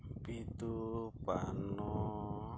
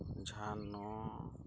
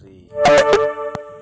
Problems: background sounds at intervals, low volume